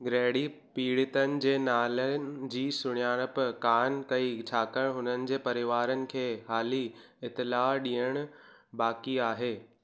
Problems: none marked